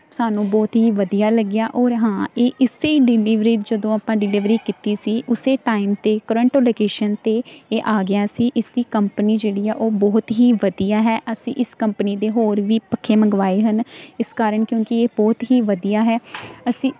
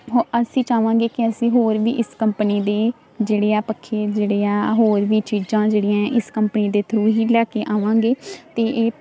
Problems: none marked